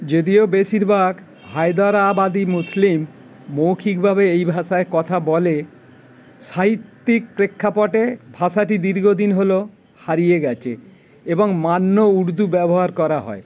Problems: constant background noise